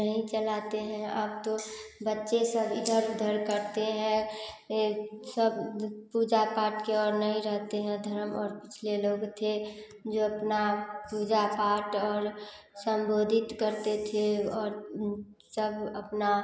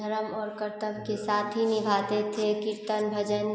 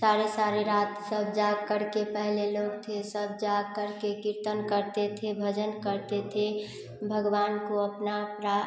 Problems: constant background noise